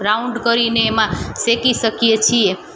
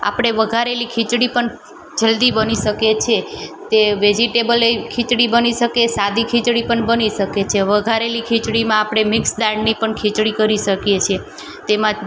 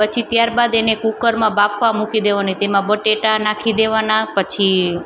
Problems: none marked